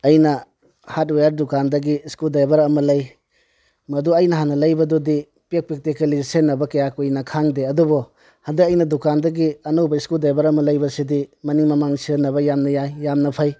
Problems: background sounds at intervals